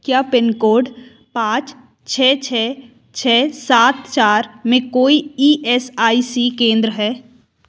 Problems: background sounds at intervals